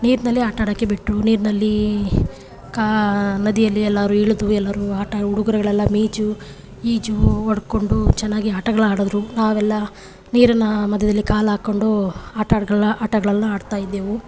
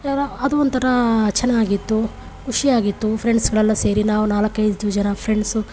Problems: none marked